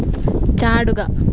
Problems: constant background noise